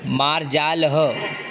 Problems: constant background noise